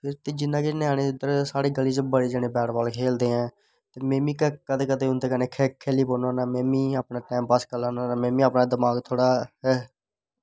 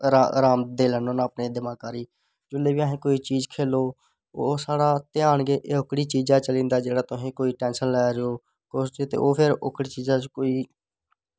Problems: none marked